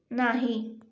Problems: none marked